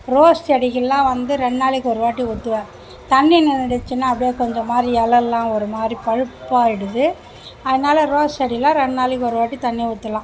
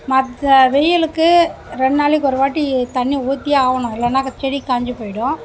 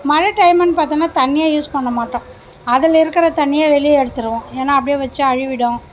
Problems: none marked